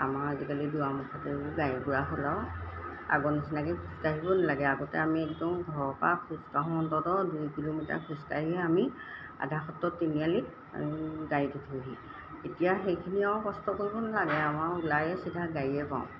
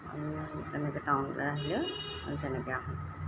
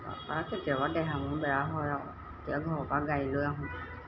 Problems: none marked